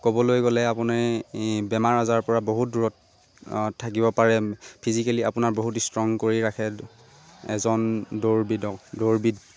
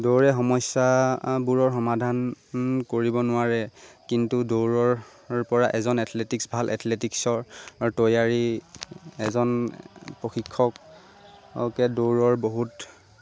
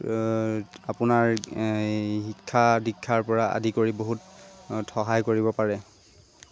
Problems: constant background noise